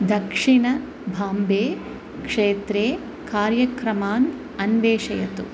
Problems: constant background noise